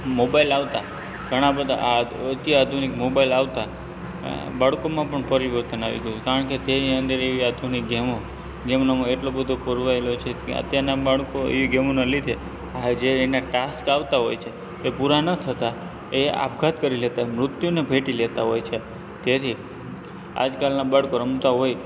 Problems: constant background noise